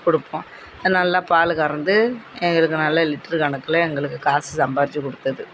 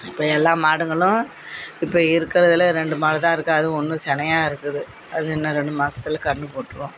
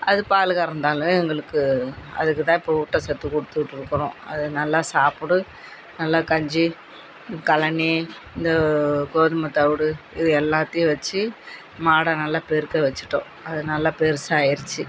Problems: constant background noise, background conversations at intervals